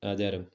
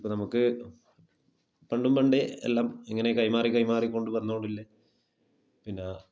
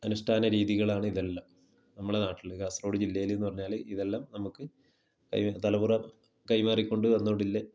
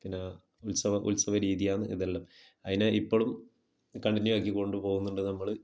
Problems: low volume